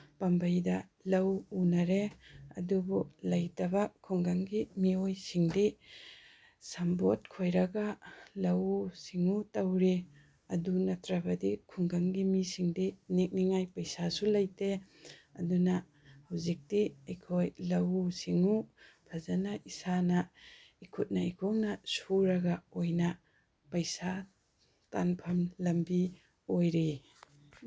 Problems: none marked